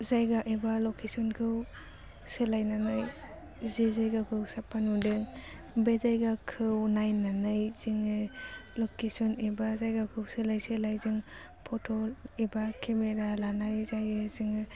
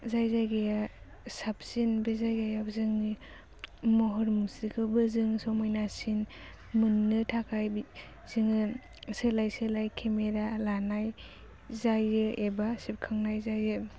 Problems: low volume